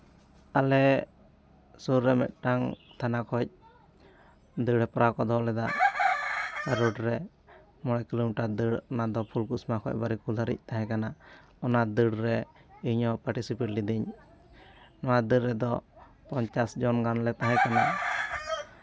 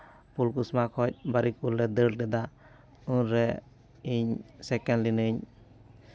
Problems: background sounds at intervals, continuous background conversations